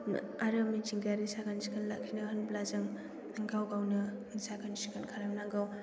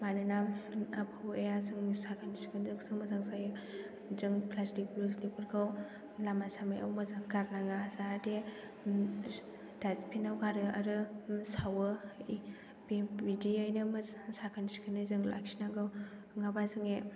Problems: background sounds at intervals